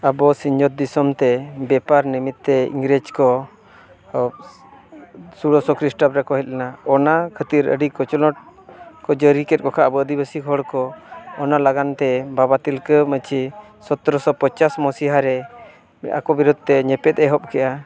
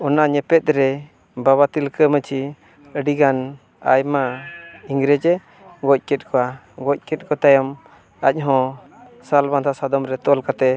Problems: constant background noise, continuous background conversations